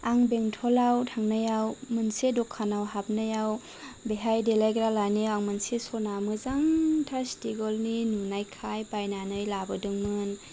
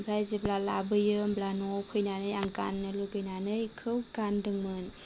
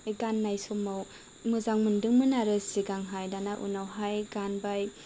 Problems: none marked